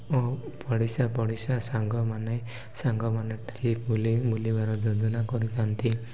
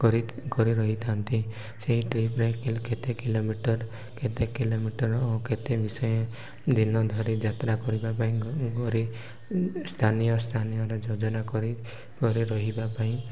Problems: none marked